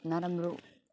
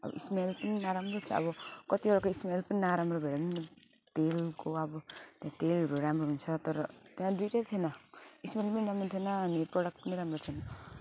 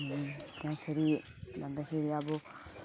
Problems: constant background noise, continuous background conversations